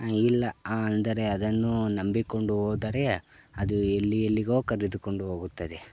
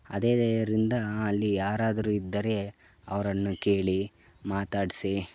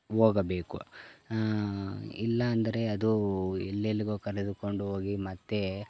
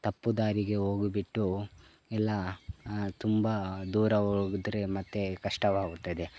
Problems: none marked